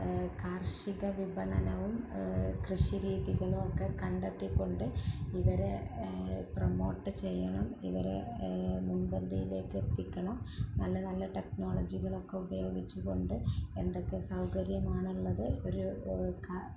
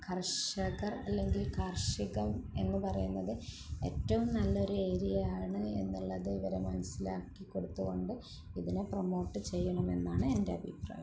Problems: constant background noise, low volume